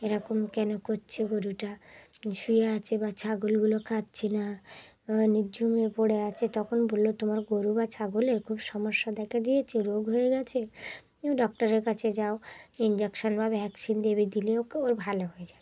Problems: background sounds at intervals, background conversations at intervals